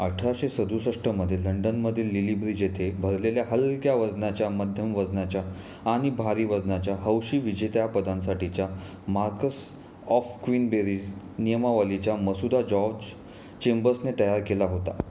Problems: constant background noise, background conversations at intervals